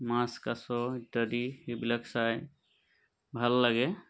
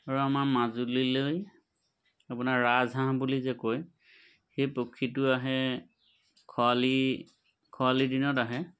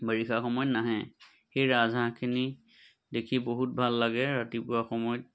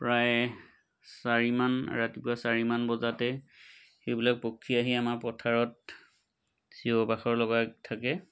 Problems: none marked